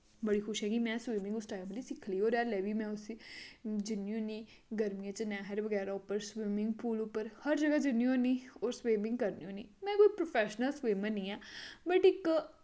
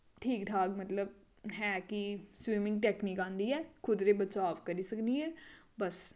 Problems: constant background noise, echo